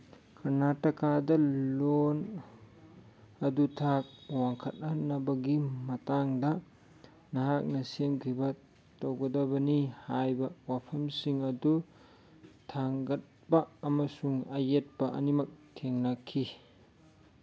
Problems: none marked